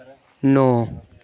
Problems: none marked